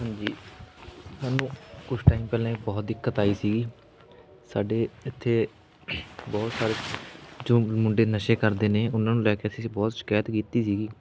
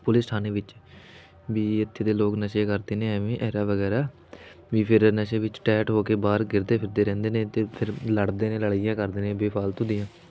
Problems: none marked